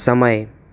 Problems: none marked